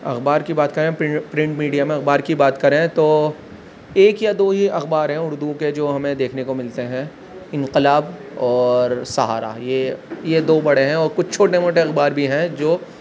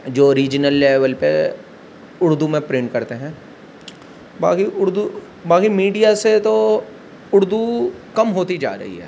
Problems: constant background noise